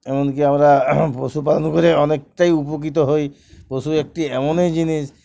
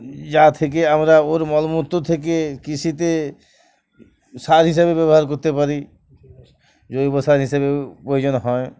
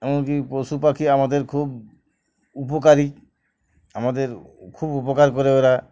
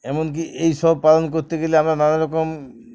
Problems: none marked